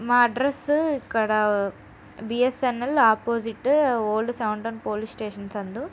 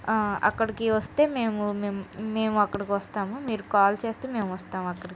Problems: background sounds at intervals